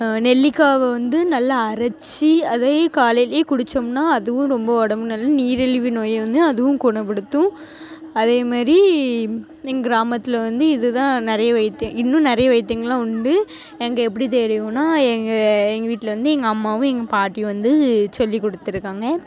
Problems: constant background noise, background conversations at intervals